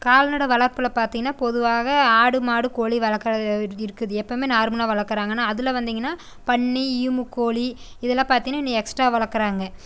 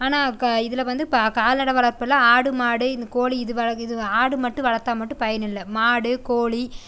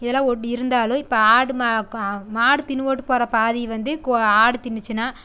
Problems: none marked